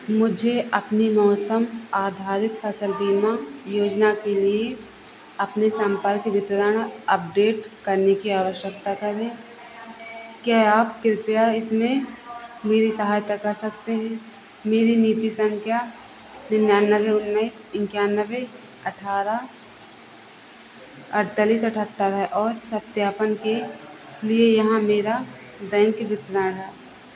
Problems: constant background noise